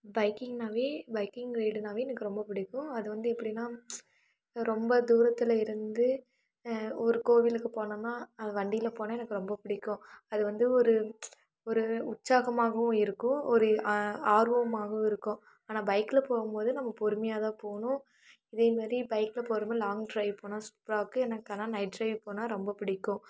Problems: low volume